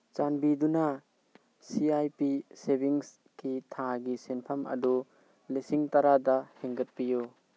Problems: background sounds at intervals